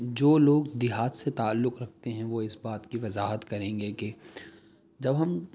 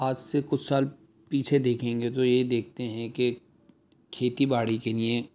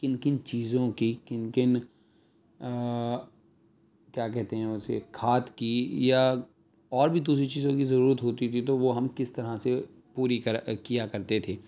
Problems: none marked